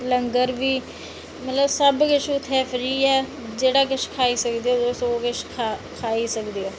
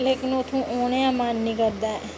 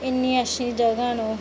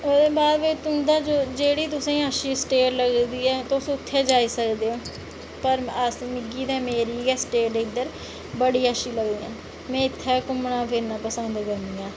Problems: none marked